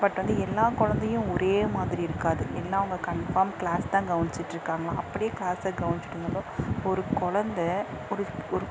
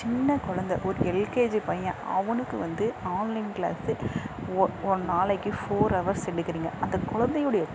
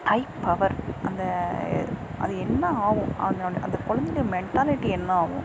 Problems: constant background noise